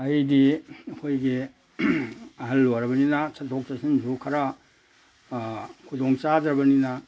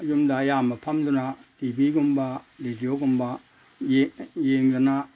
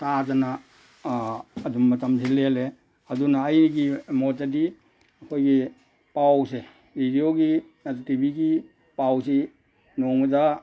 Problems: background sounds at intervals